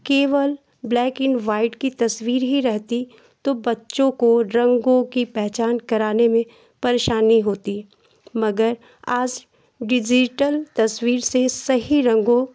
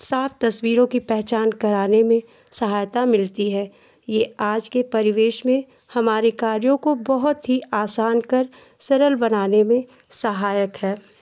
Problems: constant background noise